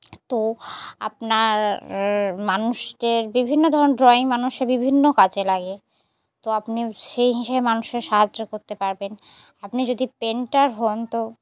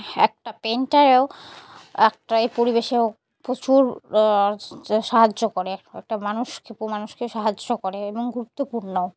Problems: background sounds at intervals